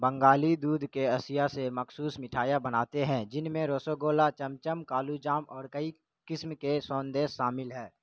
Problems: constant background noise